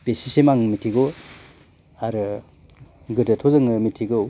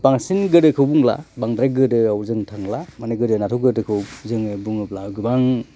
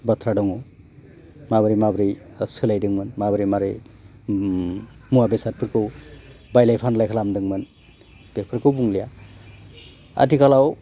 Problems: constant background noise